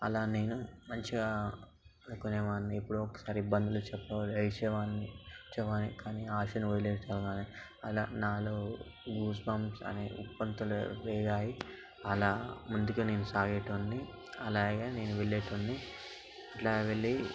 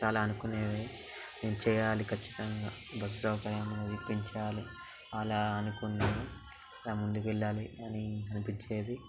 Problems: background sounds at intervals, background conversations at intervals